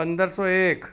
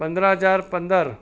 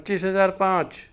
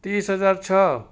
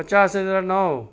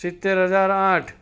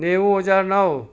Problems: none marked